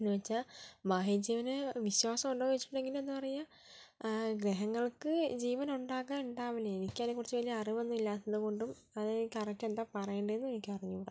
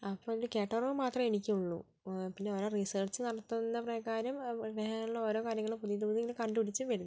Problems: low volume